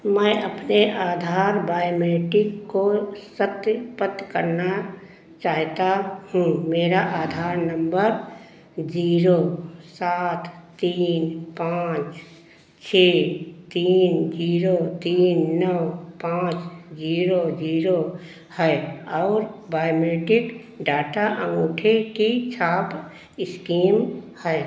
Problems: none marked